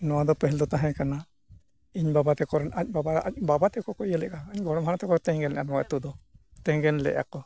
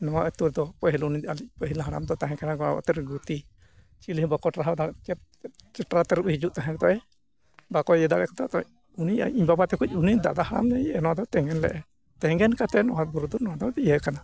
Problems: none marked